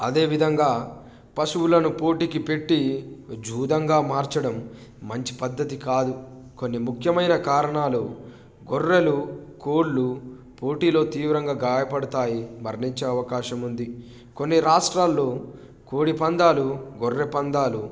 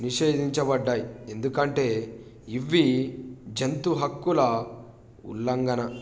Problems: background sounds at intervals